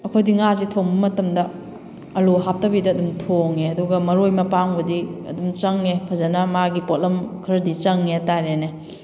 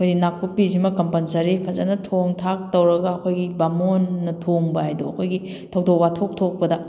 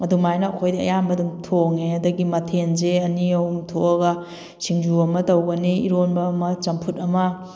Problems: background sounds at intervals